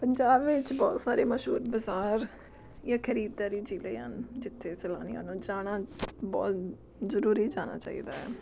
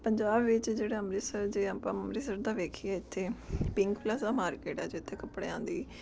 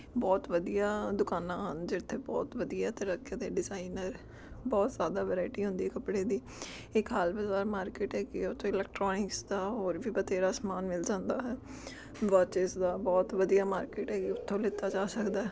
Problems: background sounds at intervals